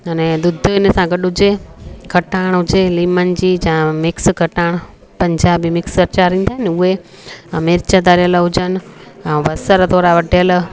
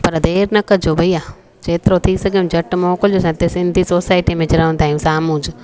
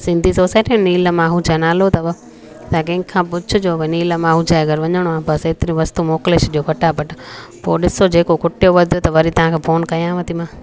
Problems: constant background noise, echo